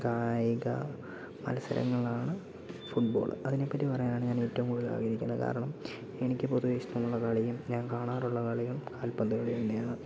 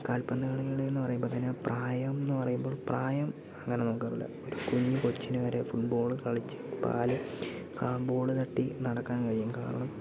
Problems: background sounds at intervals, low volume